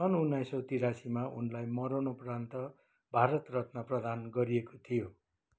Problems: none marked